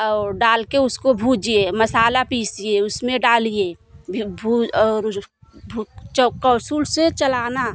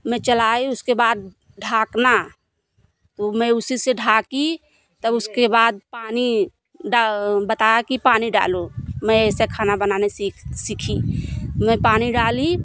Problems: none marked